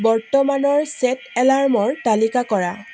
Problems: constant background noise